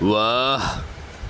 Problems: none marked